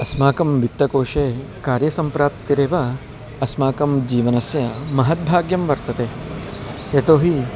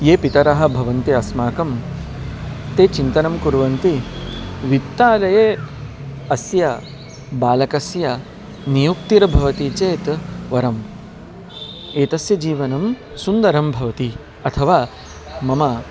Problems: none marked